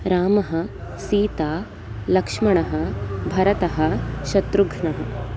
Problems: constant background noise